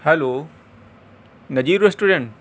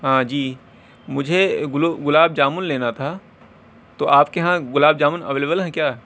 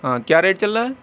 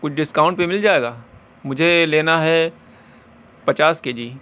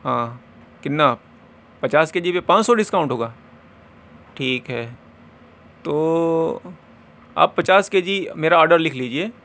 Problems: constant background noise